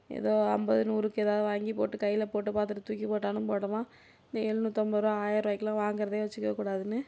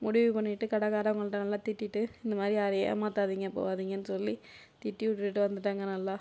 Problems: none marked